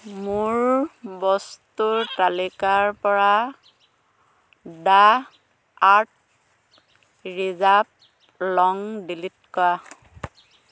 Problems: constant background noise